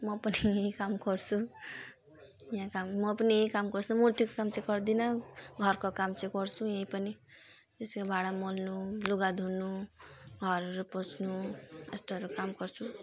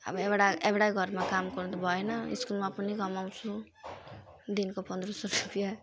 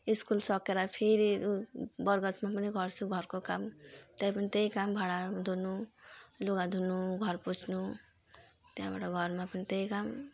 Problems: constant background noise